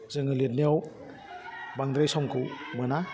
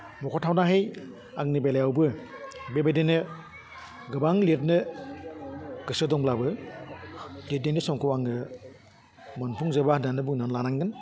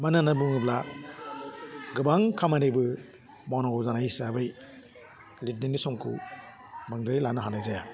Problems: low volume